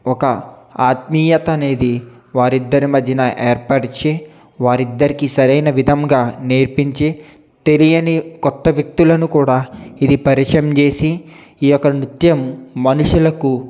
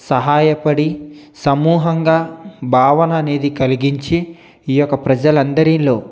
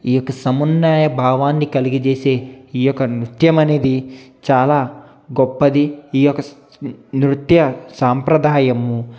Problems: none marked